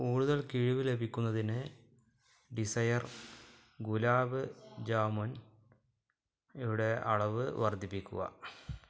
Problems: low volume